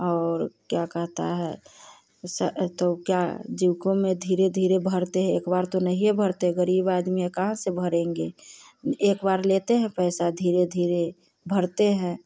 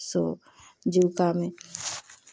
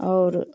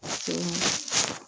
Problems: none marked